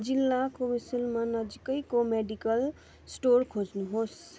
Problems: constant background noise